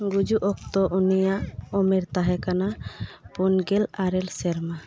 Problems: none marked